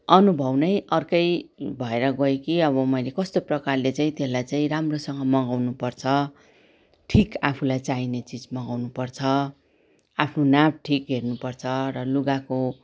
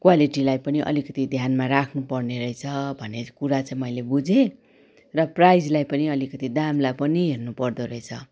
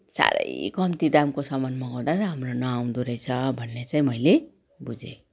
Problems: none marked